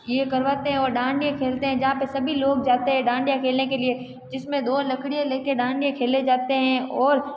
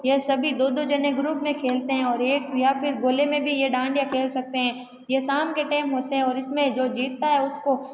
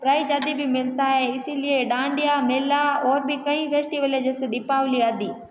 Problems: background conversations at intervals